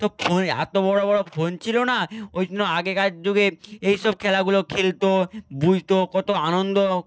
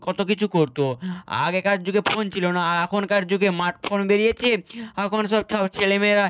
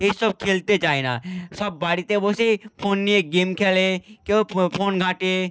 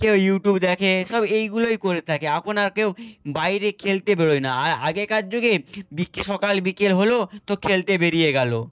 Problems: none marked